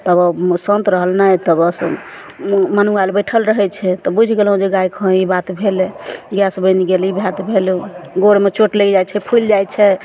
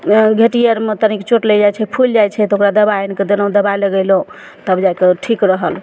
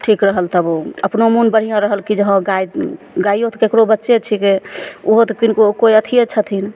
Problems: none marked